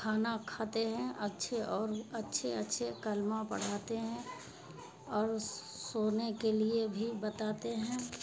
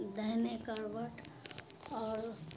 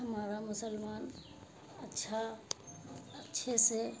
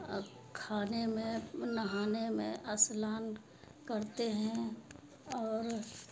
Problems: constant background noise